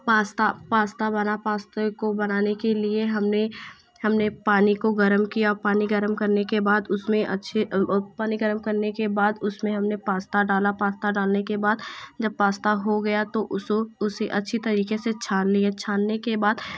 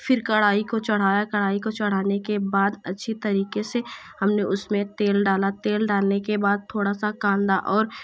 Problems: none marked